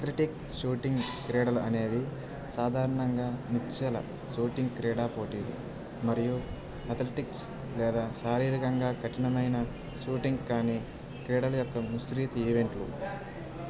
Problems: constant background noise